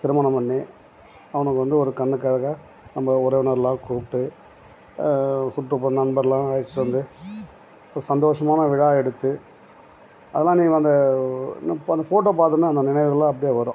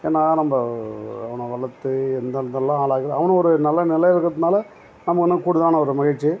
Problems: background sounds at intervals